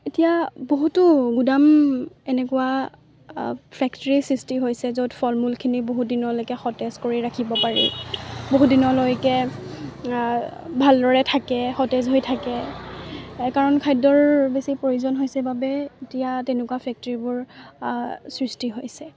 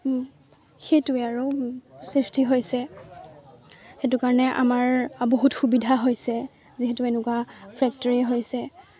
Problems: none marked